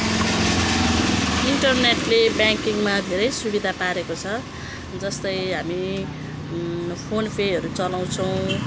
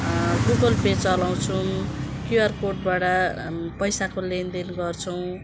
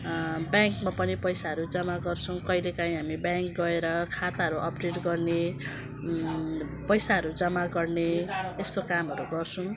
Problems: constant background noise